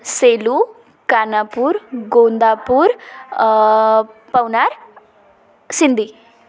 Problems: none marked